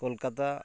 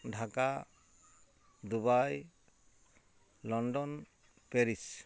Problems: constant background noise